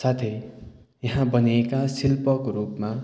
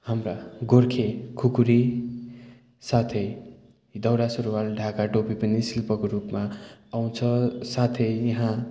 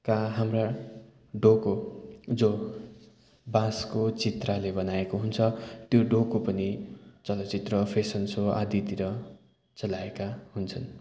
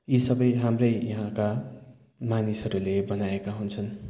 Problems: continuous background conversations